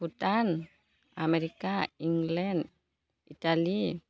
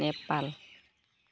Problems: constant background noise